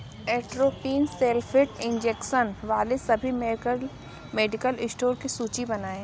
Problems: background sounds at intervals